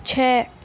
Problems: constant background noise